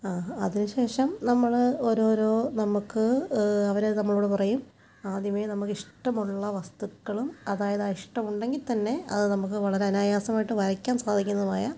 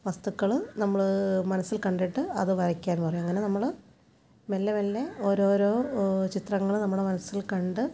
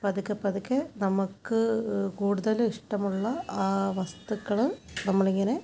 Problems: background sounds at intervals